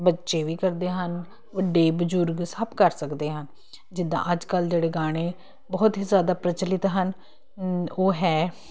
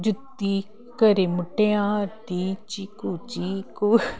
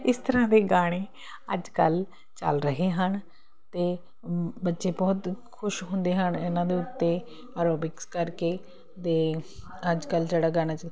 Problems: constant background noise